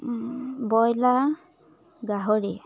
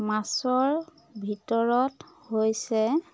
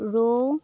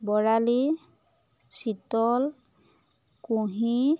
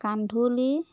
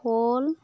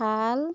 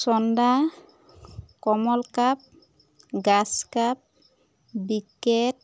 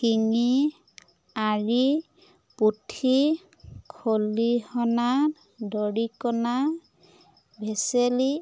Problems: constant background noise, background conversations at intervals